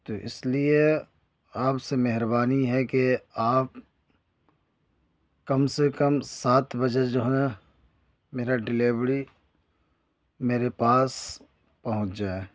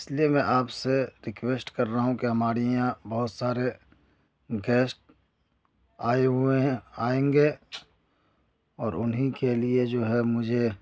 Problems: none marked